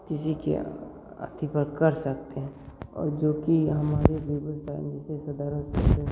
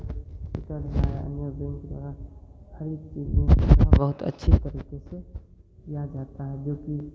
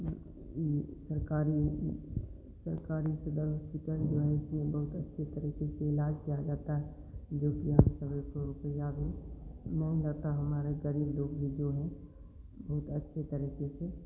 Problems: low volume